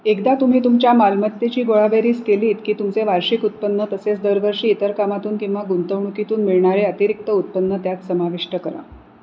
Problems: none marked